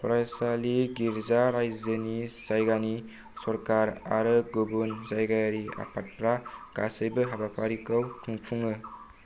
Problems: low volume